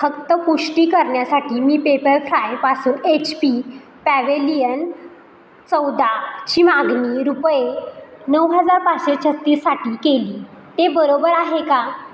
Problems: constant background noise